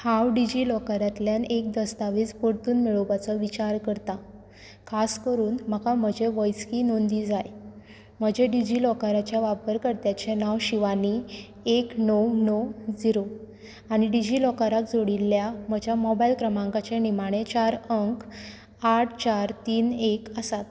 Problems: background sounds at intervals